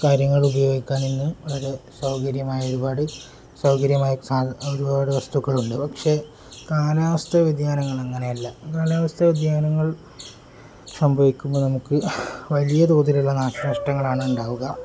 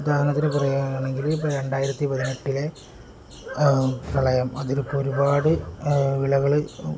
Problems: low volume